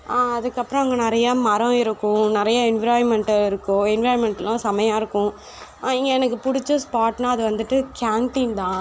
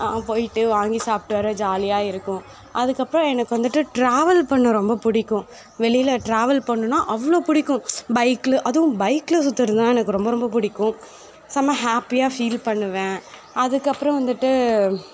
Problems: background sounds at intervals, background conversations at intervals